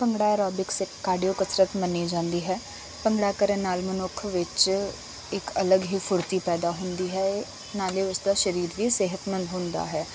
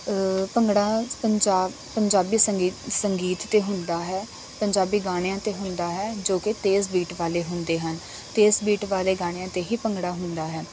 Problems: constant background noise